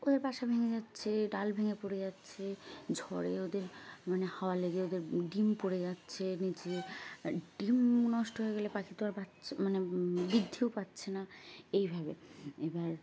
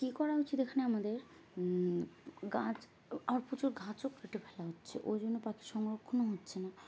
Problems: constant background noise, background conversations at intervals